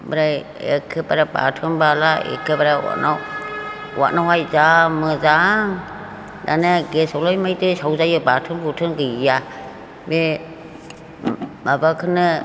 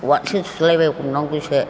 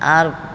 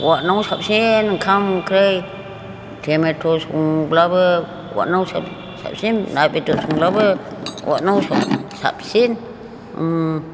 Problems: none marked